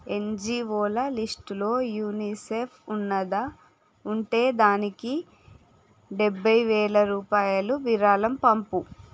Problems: none marked